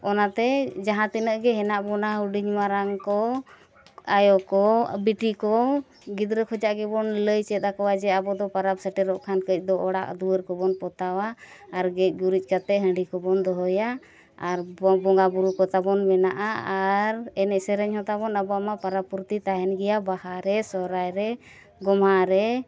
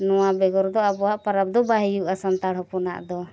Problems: none marked